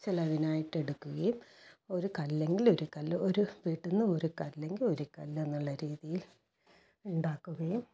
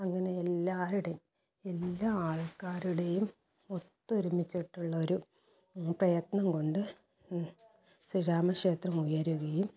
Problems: low volume